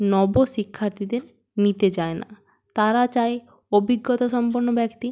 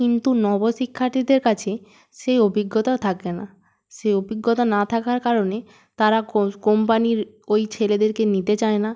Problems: background sounds at intervals